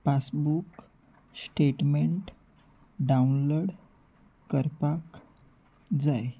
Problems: background sounds at intervals